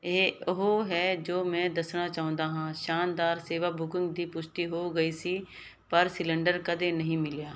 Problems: none marked